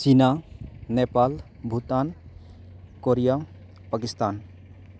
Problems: constant background noise